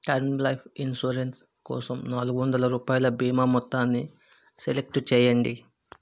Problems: none marked